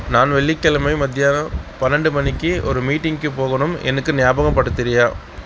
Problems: background sounds at intervals